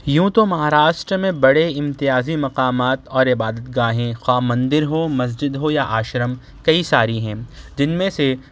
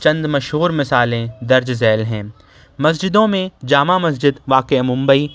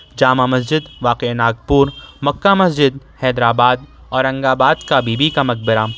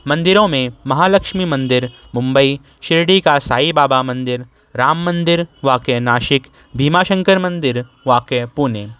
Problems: none marked